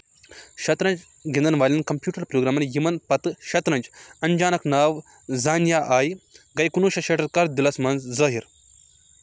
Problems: none marked